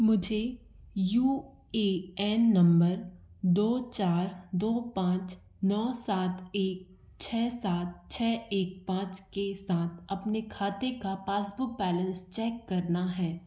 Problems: none marked